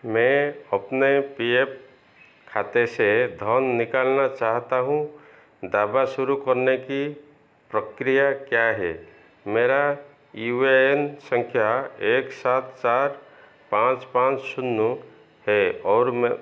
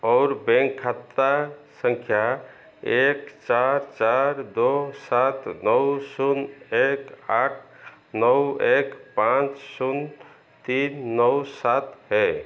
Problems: constant background noise, echo